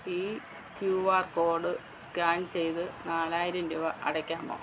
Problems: constant background noise